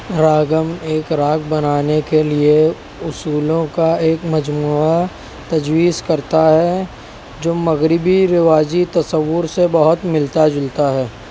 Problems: constant background noise